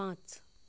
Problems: low volume